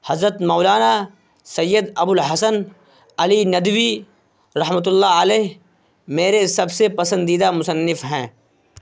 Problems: constant background noise